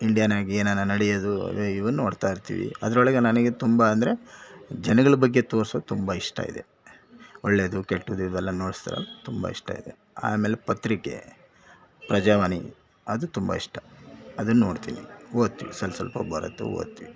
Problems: background sounds at intervals